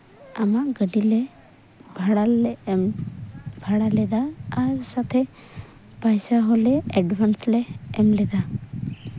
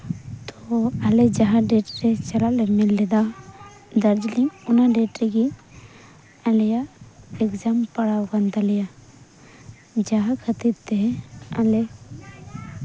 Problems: constant background noise